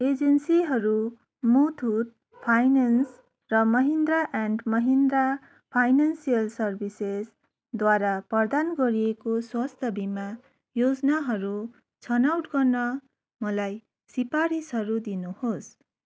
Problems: background sounds at intervals